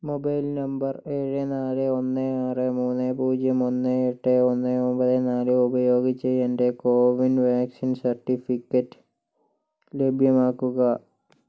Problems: low volume